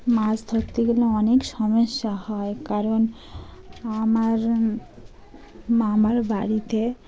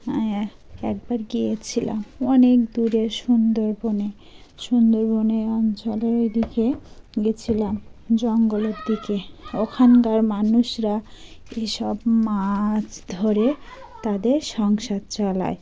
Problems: constant background noise, continuous background conversations